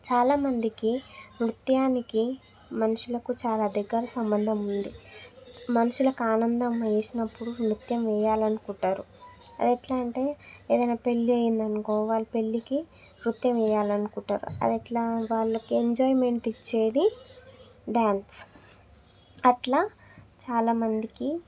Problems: background sounds at intervals